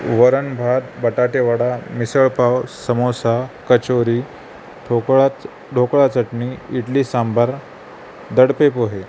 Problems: none marked